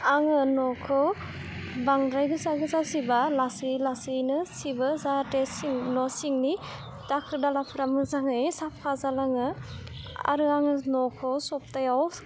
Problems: low volume